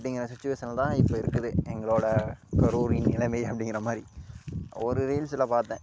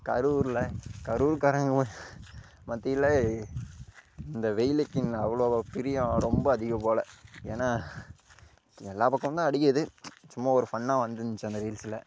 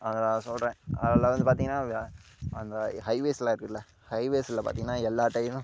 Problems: none marked